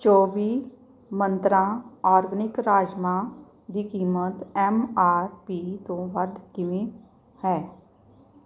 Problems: background sounds at intervals